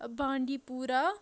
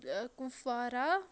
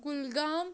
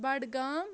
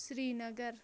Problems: none marked